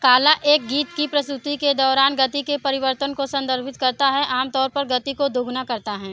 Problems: constant background noise, background conversations at intervals